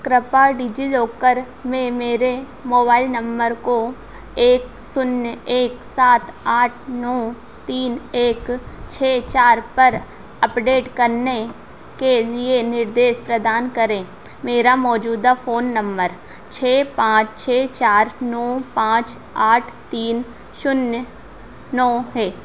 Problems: constant background noise